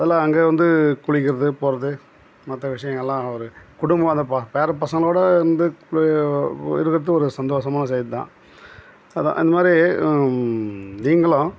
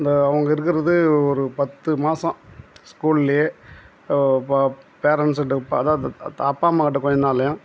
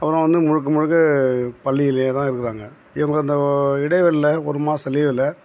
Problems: background sounds at intervals